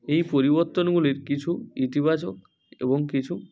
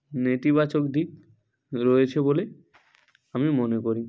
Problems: constant background noise